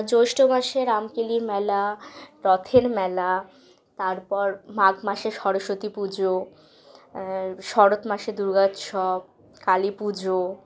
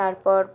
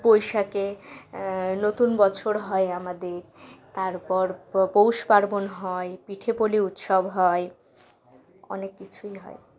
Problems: background sounds at intervals